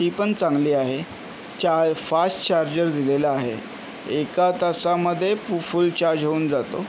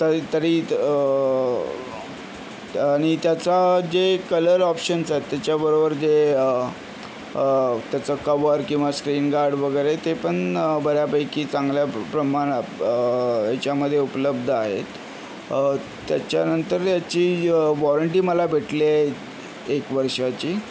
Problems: none marked